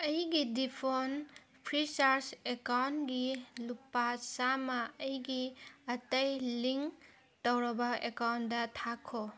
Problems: none marked